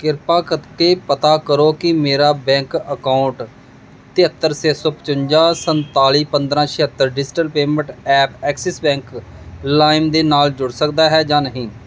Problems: none marked